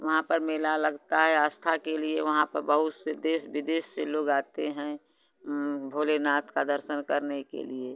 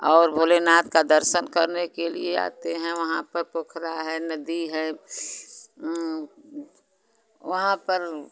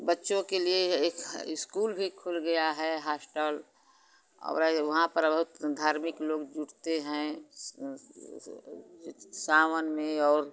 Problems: constant background noise